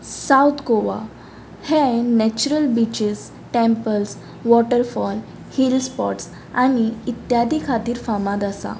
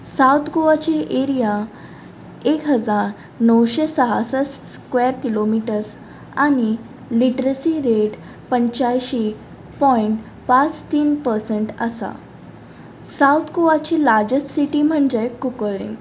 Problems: background sounds at intervals